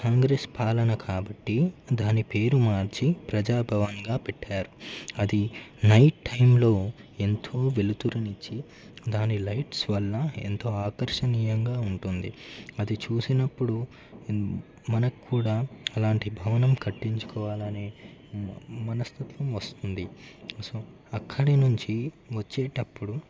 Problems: constant background noise